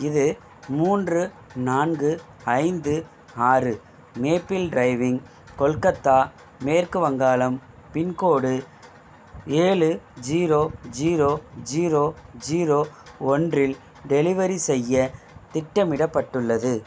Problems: none marked